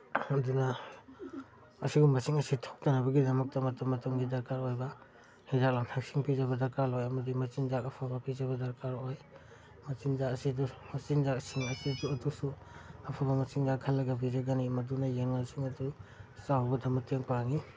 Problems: background conversations at intervals